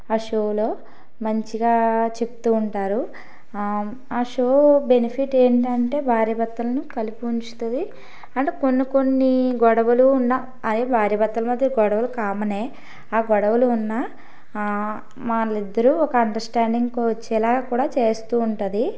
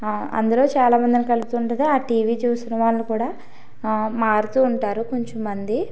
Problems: background sounds at intervals